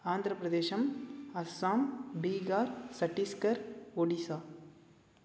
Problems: none marked